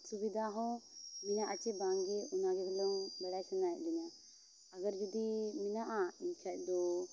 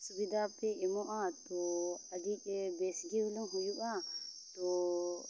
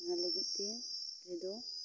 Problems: constant background noise